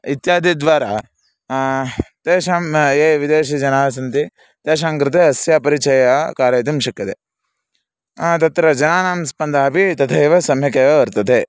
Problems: background sounds at intervals